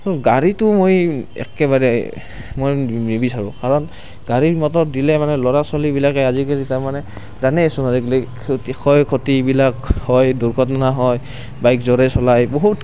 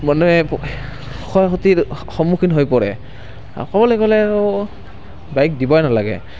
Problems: constant background noise